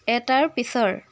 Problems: none marked